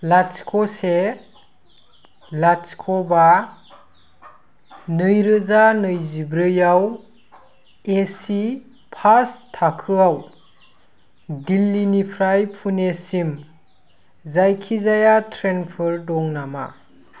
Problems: none marked